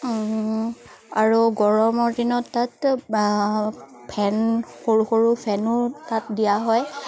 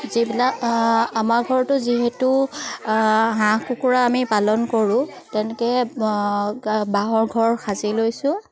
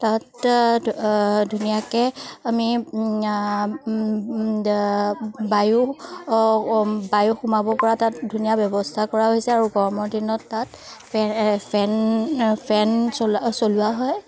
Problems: none marked